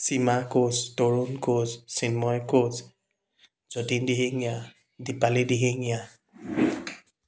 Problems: background sounds at intervals